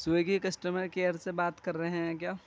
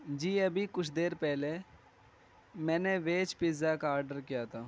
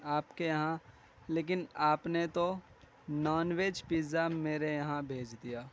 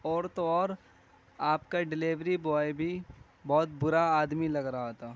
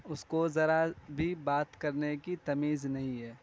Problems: constant background noise